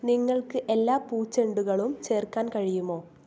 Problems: low volume